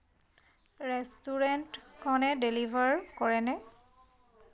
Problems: none marked